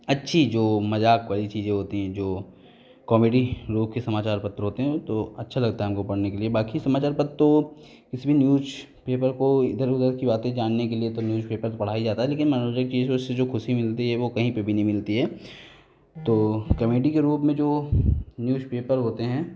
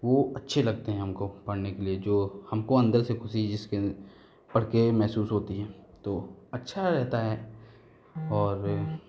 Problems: none marked